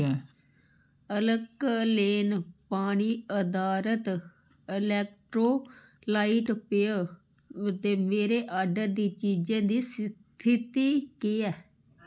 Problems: background sounds at intervals